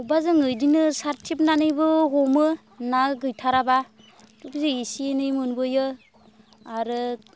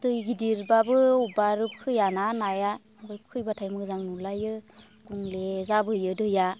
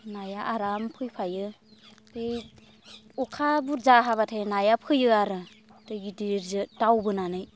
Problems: constant background noise